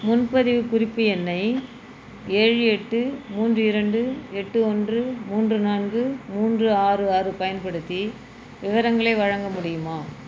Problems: background sounds at intervals